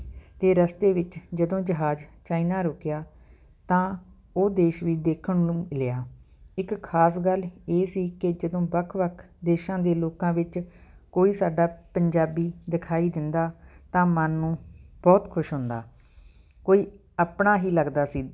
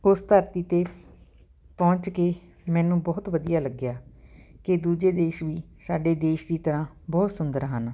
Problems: none marked